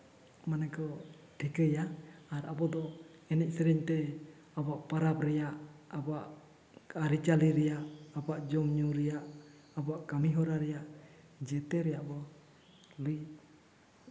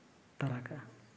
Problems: none marked